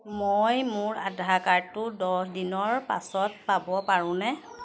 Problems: constant background noise, background conversations at intervals